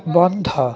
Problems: background sounds at intervals, continuous background conversations